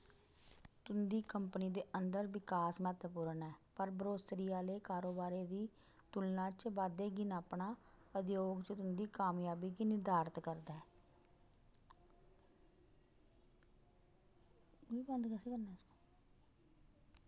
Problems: low volume